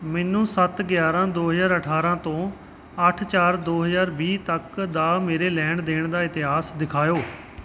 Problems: background sounds at intervals